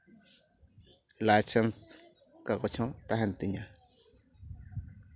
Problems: background sounds at intervals